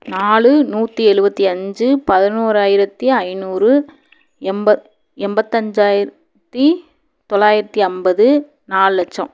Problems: background sounds at intervals